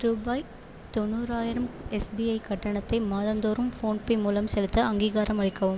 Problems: constant background noise